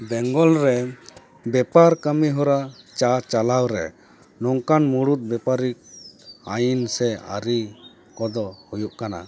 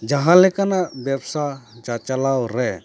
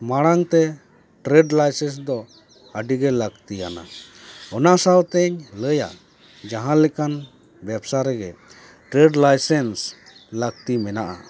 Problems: background conversations at intervals